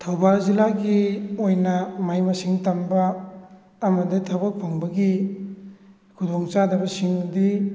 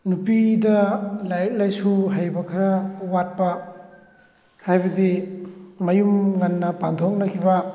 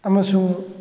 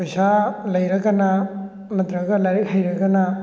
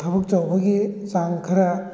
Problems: background sounds at intervals